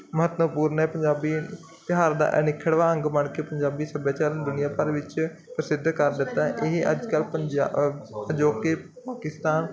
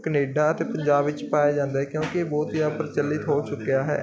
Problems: continuous background conversations